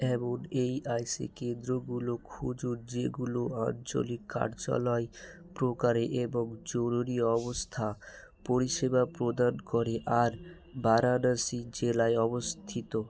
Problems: none marked